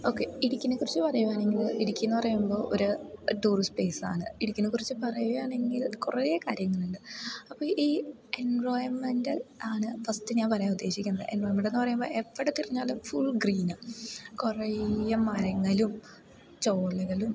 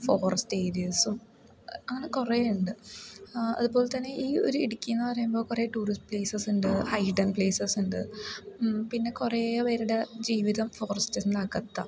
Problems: none marked